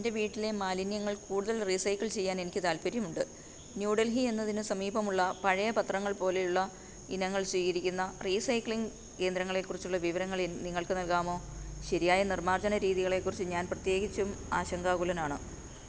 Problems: none marked